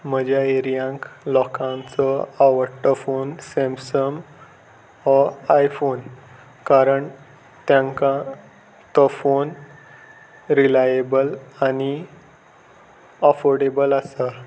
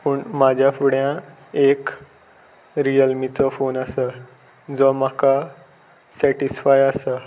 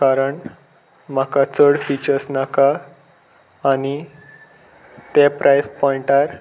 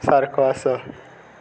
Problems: constant background noise